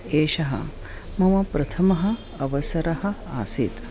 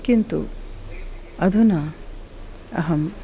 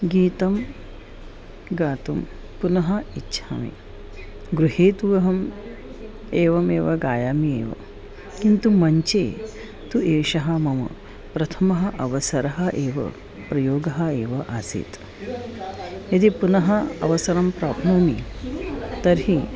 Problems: background sounds at intervals, background conversations at intervals